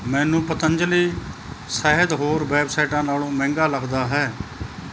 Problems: constant background noise